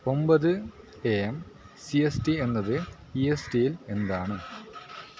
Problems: constant background noise